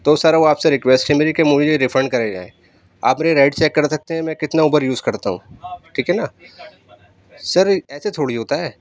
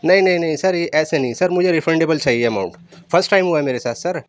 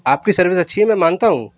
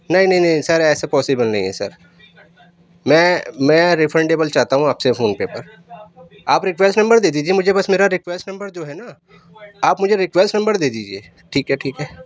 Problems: background sounds at intervals